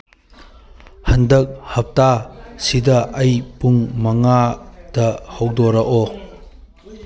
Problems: background conversations at intervals